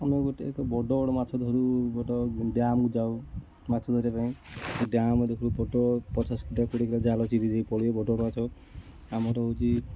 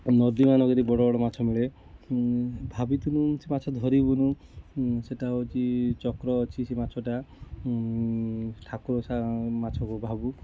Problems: constant background noise, continuous background conversations